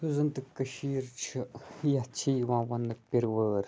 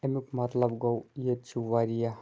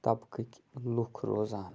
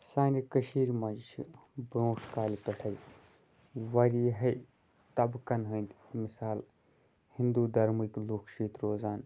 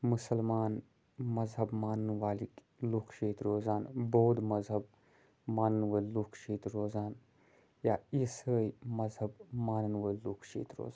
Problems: constant background noise